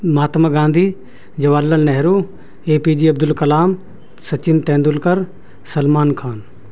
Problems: constant background noise